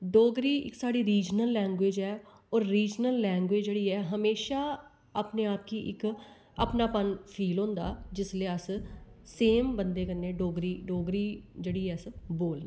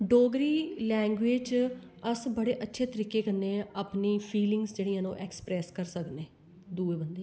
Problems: background sounds at intervals